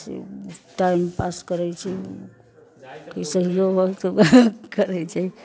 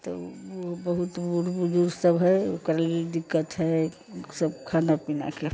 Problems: constant background noise, background conversations at intervals